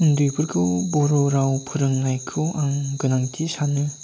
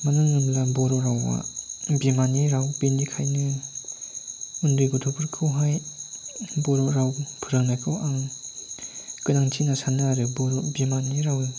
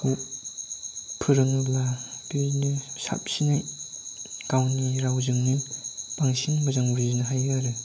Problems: constant background noise